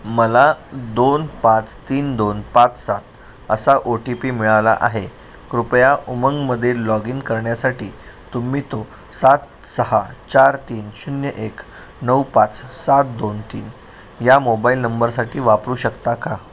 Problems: none marked